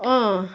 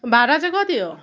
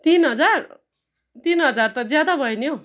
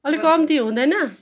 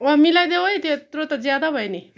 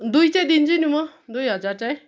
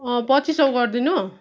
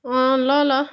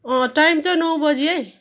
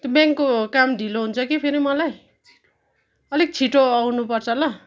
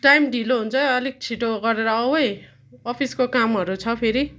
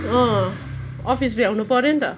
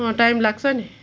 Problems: continuous background conversations